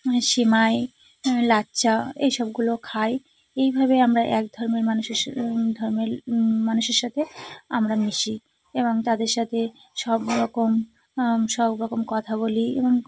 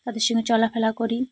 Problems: none marked